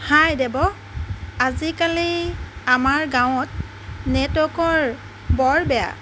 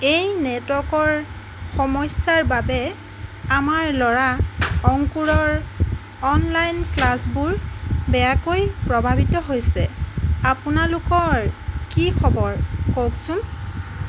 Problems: constant background noise, background conversations at intervals